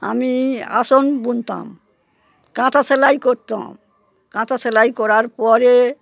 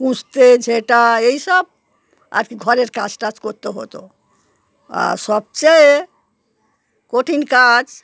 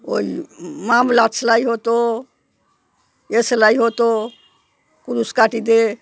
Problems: background sounds at intervals